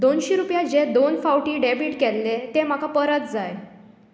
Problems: none marked